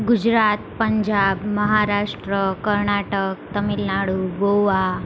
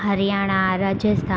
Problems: constant background noise